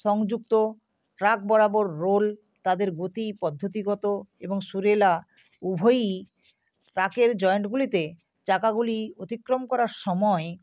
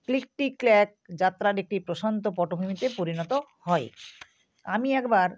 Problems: background sounds at intervals